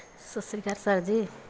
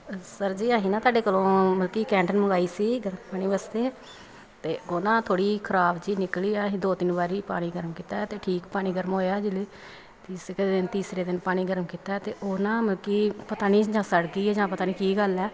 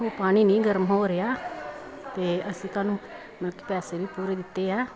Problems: continuous background conversations